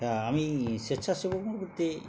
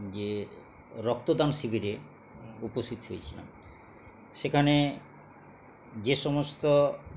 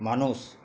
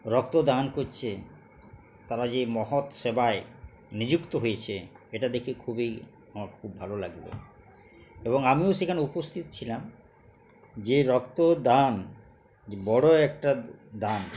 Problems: none marked